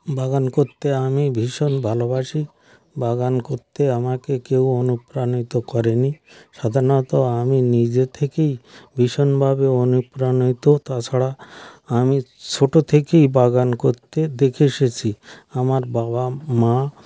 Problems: none marked